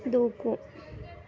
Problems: continuous background conversations